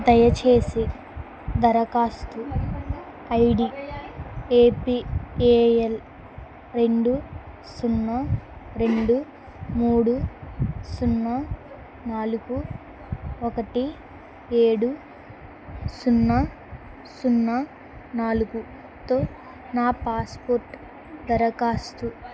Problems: background conversations at intervals